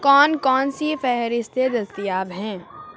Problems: constant background noise